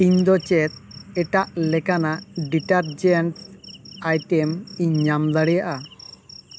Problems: constant background noise